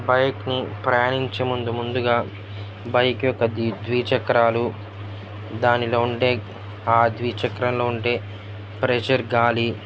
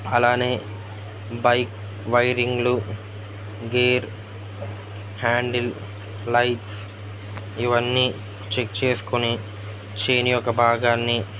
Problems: constant background noise, background conversations at intervals